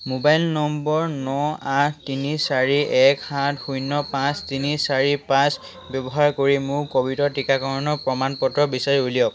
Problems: constant background noise